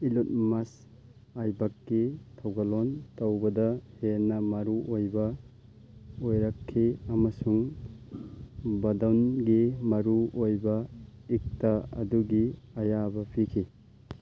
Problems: constant background noise